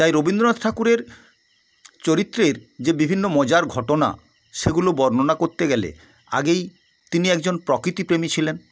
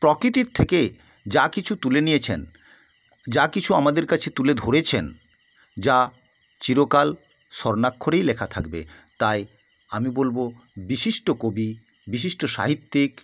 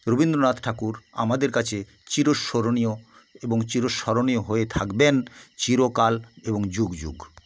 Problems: constant background noise